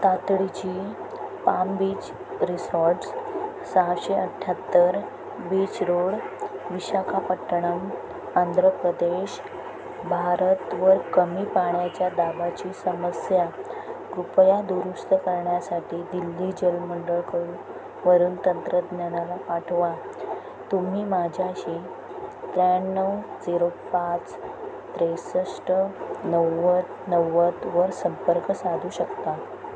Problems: constant background noise